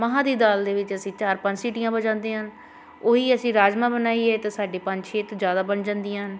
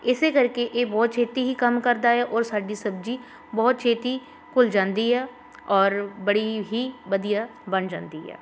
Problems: constant background noise